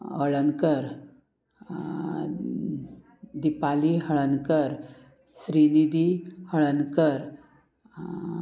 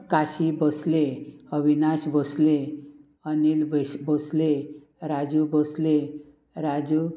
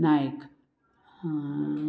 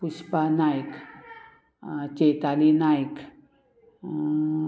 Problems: constant background noise, continuous background conversations